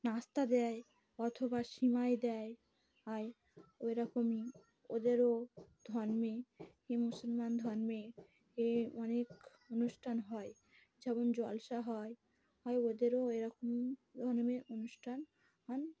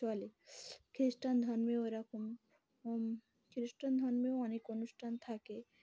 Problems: background sounds at intervals, background conversations at intervals